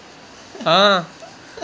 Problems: background sounds at intervals